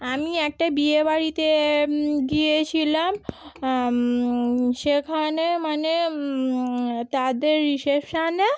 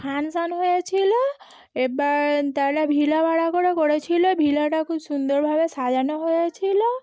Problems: background conversations at intervals